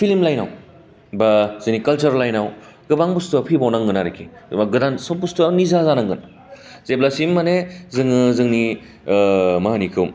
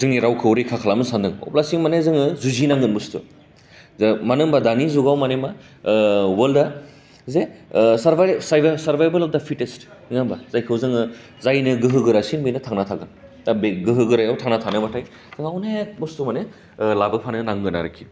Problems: low volume